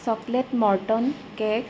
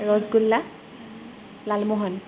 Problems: constant background noise, background conversations at intervals